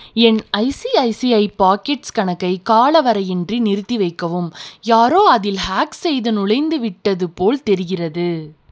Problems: none marked